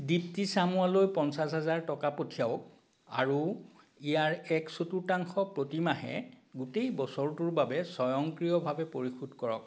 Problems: constant background noise